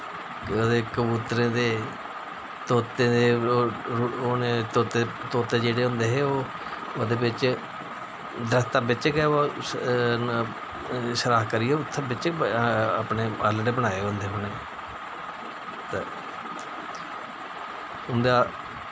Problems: constant background noise